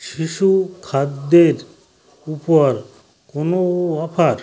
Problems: constant background noise